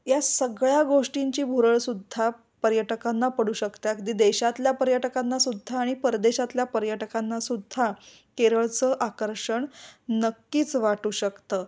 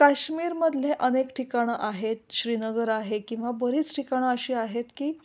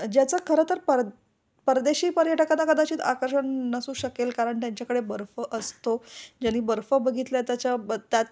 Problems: none marked